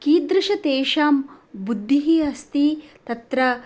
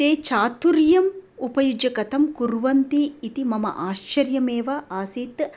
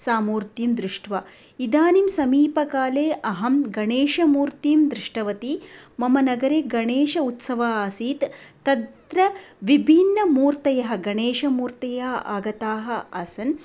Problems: background sounds at intervals